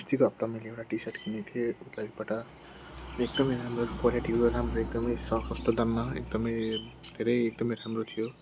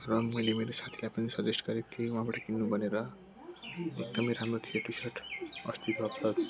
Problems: constant background noise, continuous background conversations